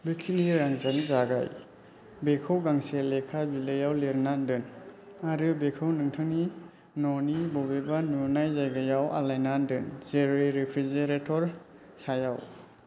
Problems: low volume